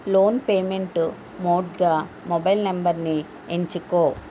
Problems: constant background noise